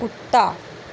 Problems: constant background noise